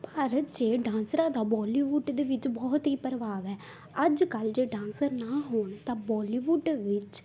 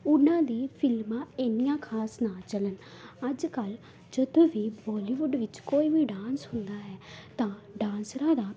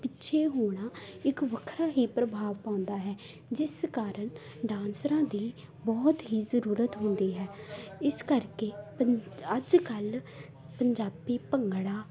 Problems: background conversations at intervals